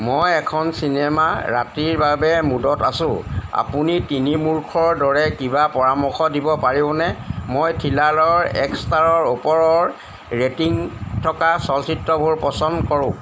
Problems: none marked